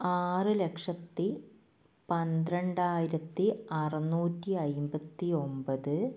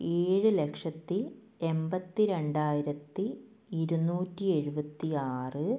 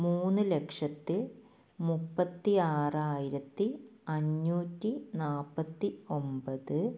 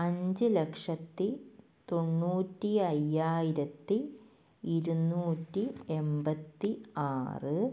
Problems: low volume